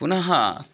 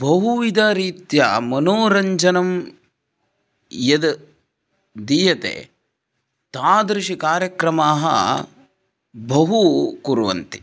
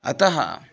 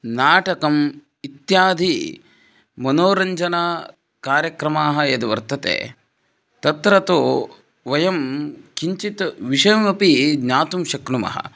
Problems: none marked